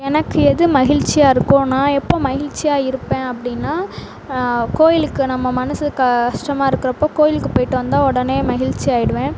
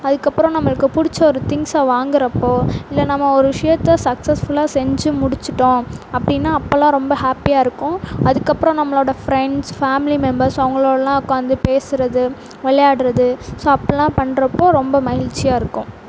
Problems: none marked